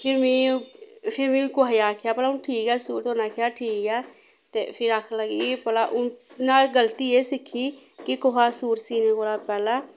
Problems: background sounds at intervals